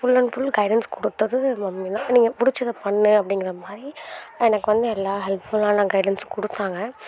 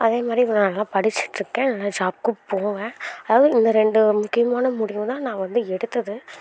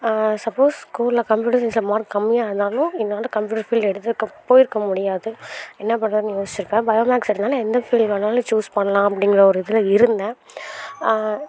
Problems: constant background noise